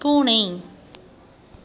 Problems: constant background noise